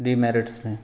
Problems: background sounds at intervals